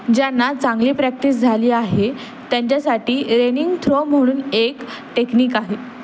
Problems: constant background noise